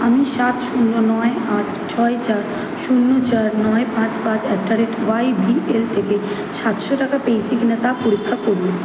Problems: background sounds at intervals